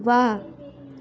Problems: background conversations at intervals